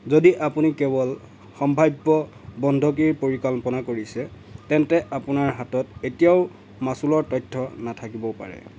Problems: none marked